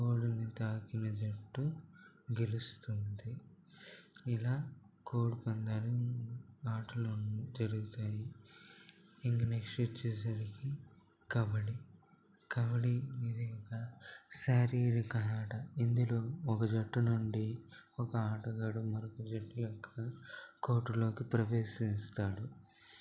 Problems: constant background noise, low volume